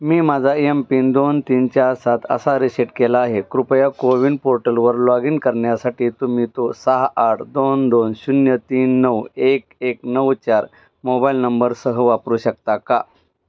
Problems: background sounds at intervals